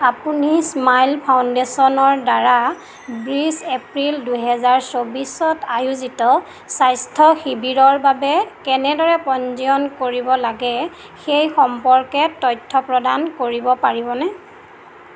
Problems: constant background noise